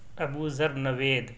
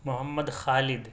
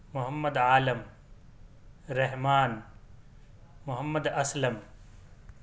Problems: none marked